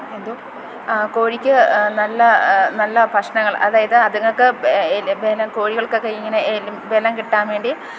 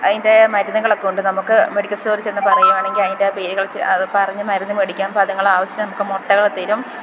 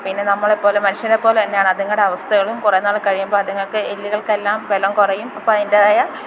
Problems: constant background noise